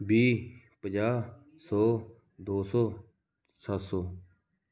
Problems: background conversations at intervals